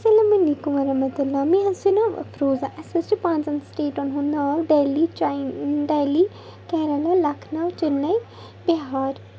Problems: constant background noise